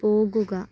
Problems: low volume